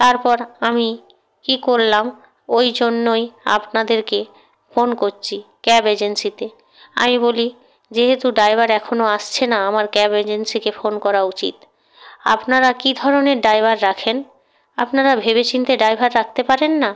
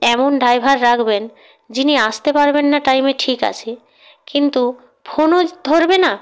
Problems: background sounds at intervals